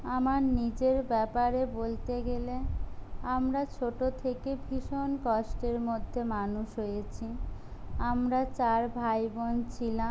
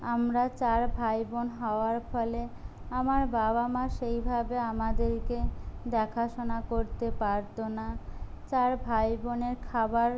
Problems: none marked